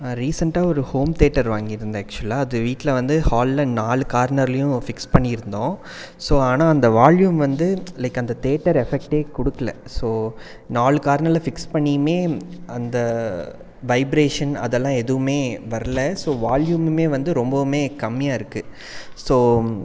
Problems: none marked